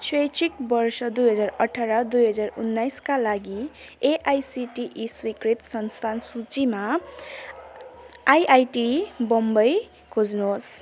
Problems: background conversations at intervals